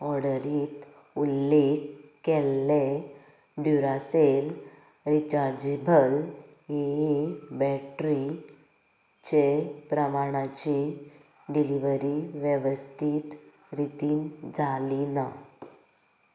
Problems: background conversations at intervals, low volume